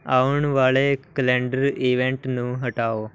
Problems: background sounds at intervals